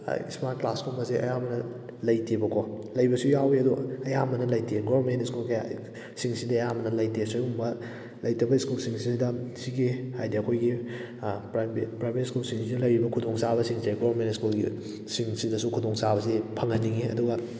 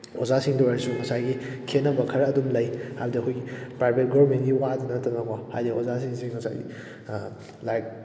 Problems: background sounds at intervals